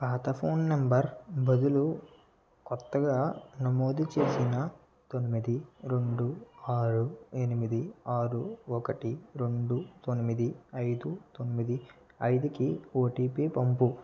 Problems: background sounds at intervals, low volume